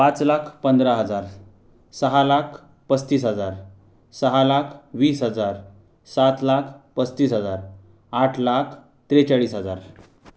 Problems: background sounds at intervals, background conversations at intervals